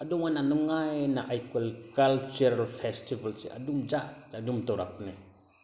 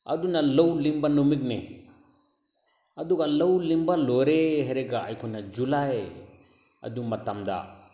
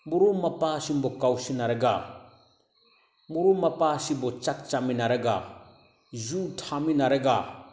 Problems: background sounds at intervals